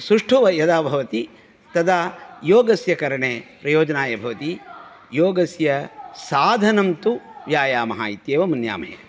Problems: none marked